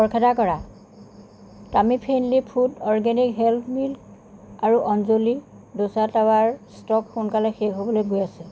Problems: constant background noise